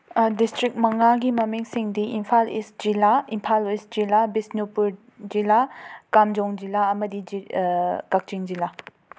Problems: none marked